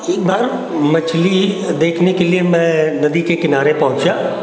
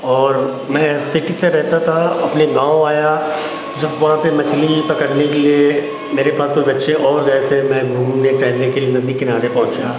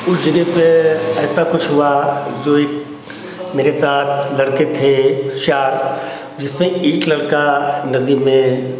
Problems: constant background noise